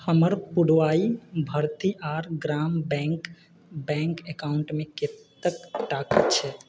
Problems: background sounds at intervals